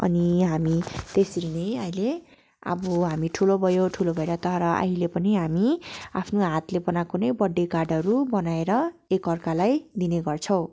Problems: constant background noise